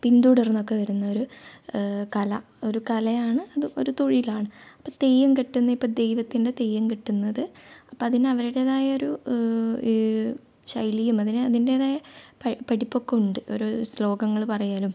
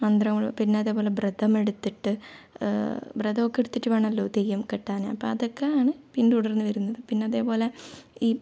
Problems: low volume